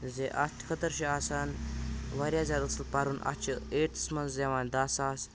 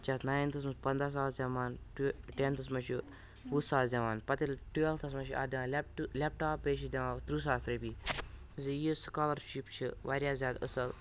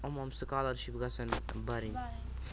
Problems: constant background noise, background conversations at intervals